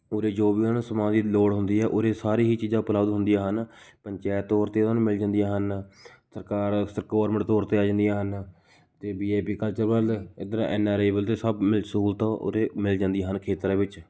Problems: none marked